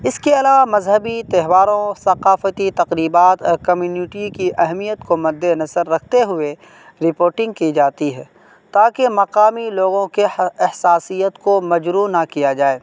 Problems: constant background noise